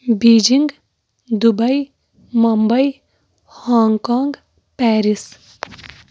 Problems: background sounds at intervals